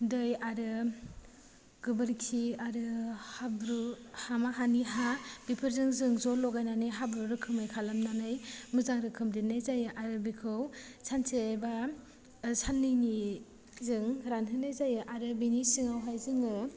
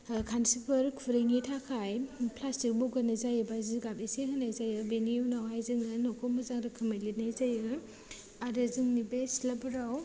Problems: low volume